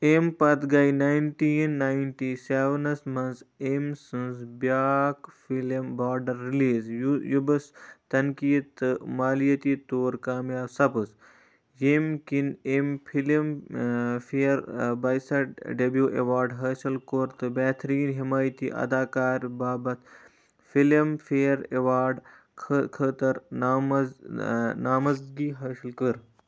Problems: background sounds at intervals